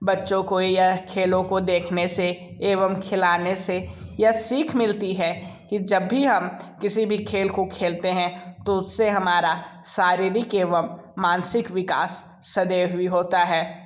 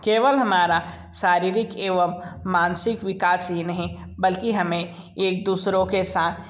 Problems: background sounds at intervals